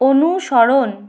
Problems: constant background noise